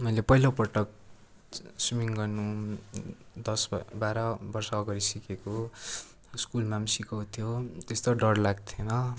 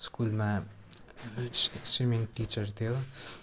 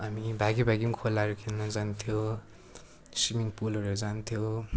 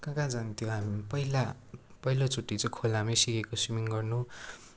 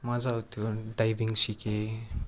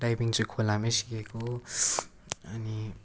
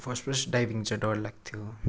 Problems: constant background noise